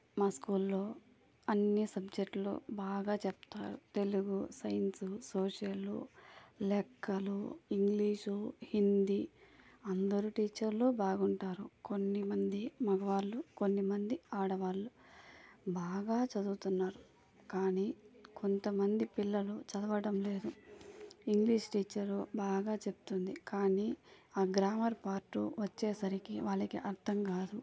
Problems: low volume